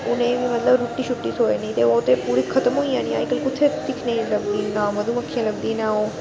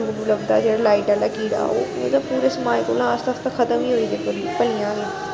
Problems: constant background noise